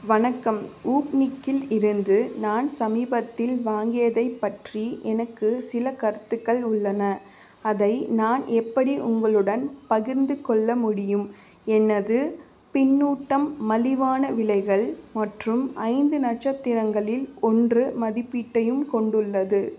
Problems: constant background noise